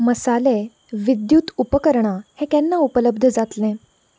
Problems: low volume